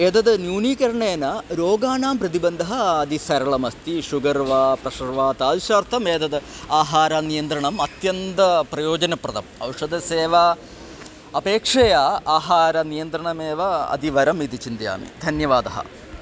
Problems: constant background noise, continuous background conversations